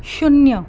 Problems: background sounds at intervals